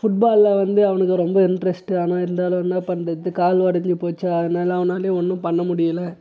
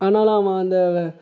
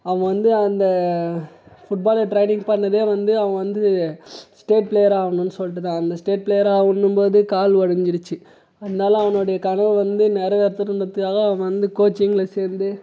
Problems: none marked